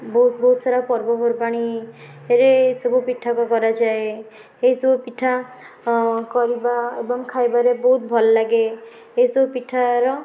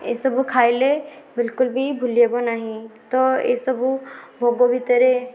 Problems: constant background noise, background conversations at intervals